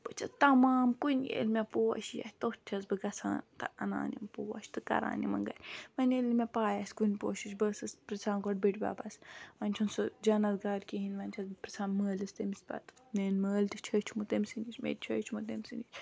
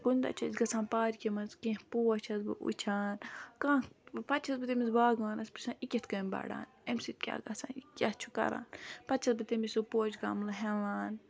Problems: background sounds at intervals